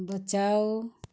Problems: none marked